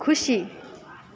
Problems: continuous background conversations